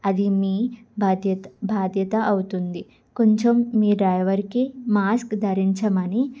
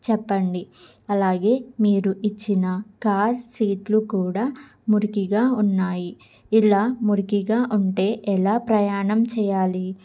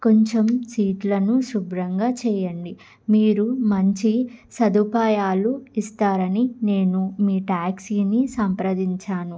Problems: none marked